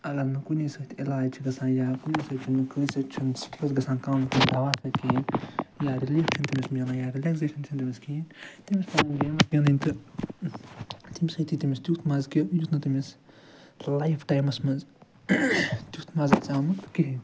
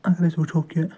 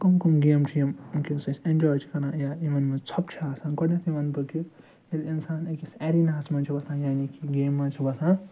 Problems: background sounds at intervals